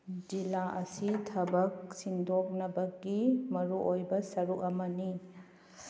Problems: none marked